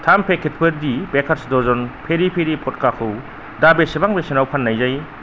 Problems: constant background noise